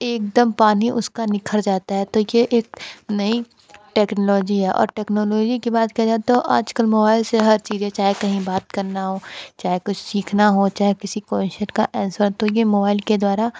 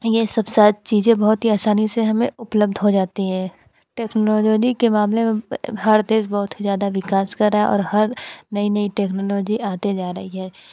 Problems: constant background noise, background conversations at intervals